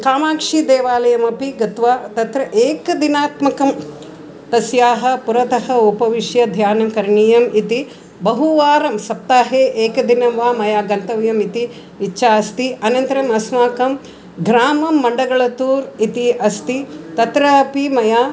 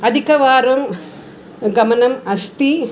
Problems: background sounds at intervals